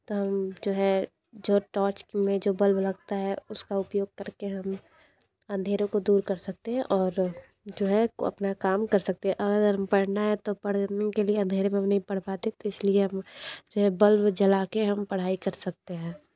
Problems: background sounds at intervals